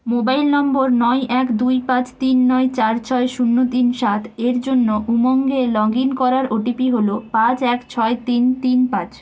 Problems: none marked